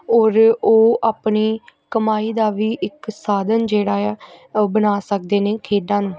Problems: continuous background conversations